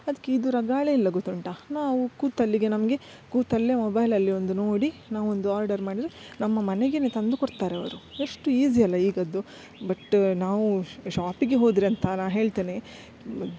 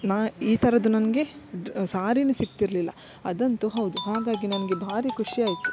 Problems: background sounds at intervals